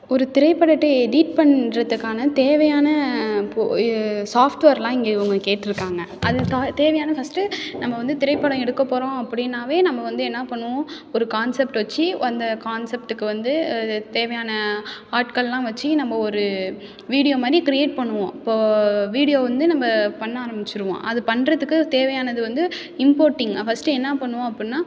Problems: background sounds at intervals